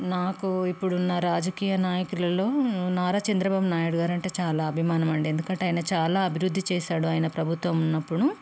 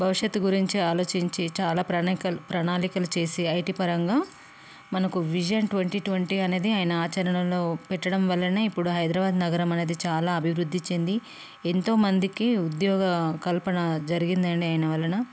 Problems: none marked